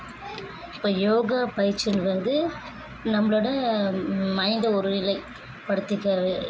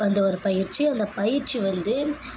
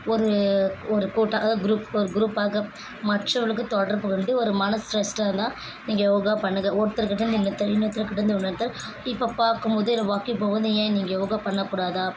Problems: background sounds at intervals, background conversations at intervals